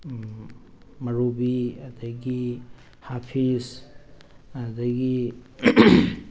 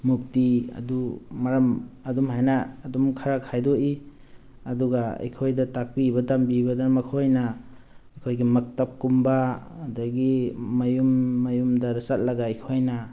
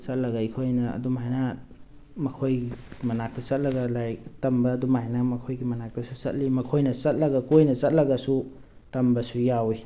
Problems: none marked